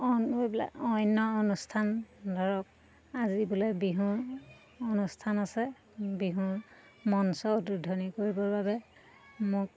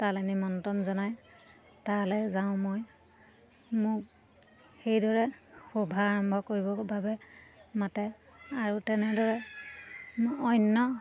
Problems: constant background noise, continuous background conversations